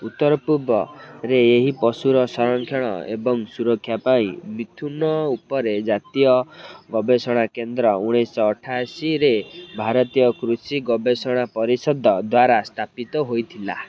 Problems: constant background noise, continuous background conversations